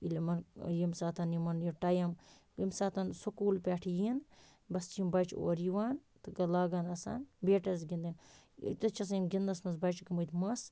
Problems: none marked